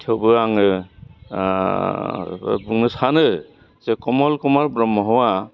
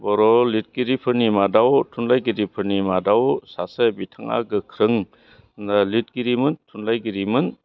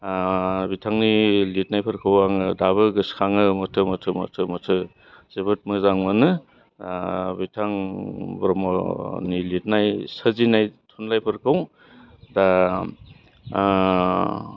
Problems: low volume